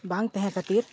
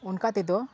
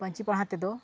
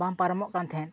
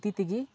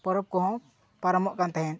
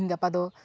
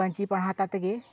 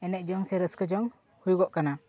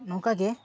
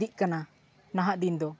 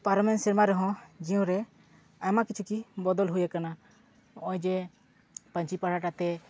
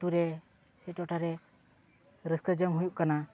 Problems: constant background noise